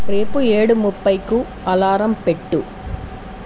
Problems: constant background noise